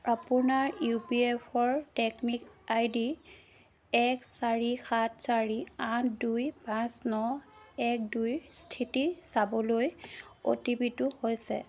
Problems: background sounds at intervals